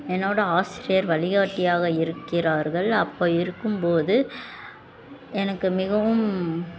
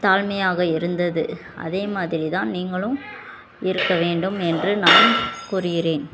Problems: constant background noise, continuous background conversations